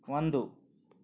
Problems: none marked